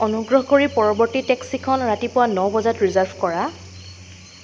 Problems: constant background noise